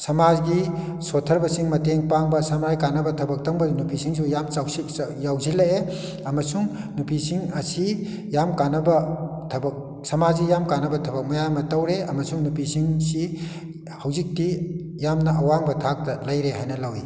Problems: none marked